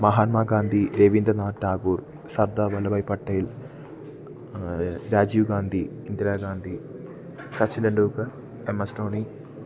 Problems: none marked